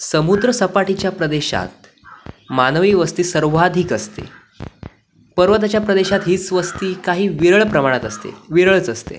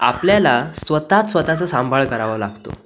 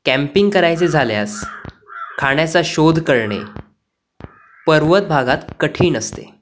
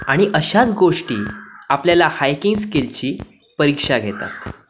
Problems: none marked